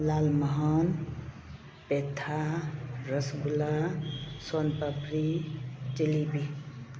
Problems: none marked